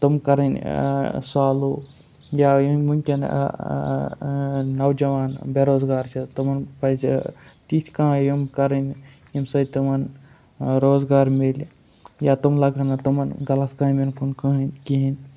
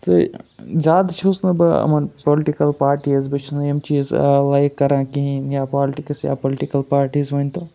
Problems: none marked